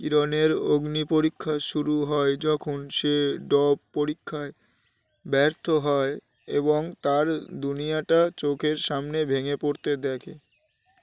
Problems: constant background noise